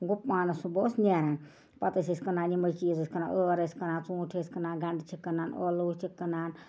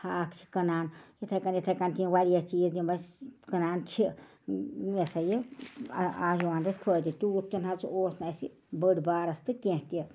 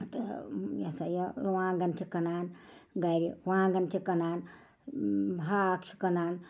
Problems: background sounds at intervals, background conversations at intervals